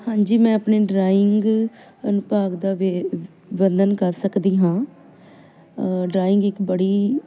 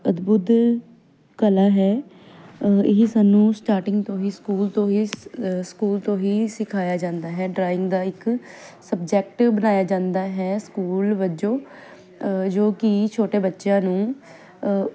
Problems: none marked